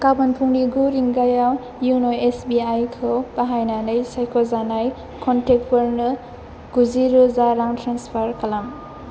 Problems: constant background noise